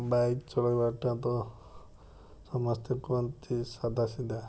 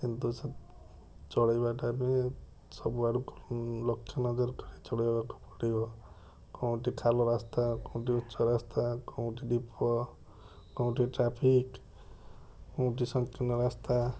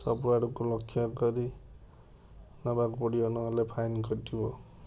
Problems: none marked